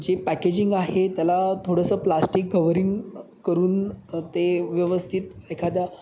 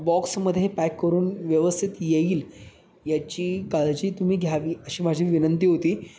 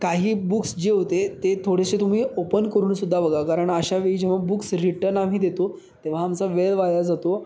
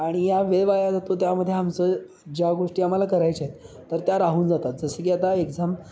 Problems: constant background noise, echo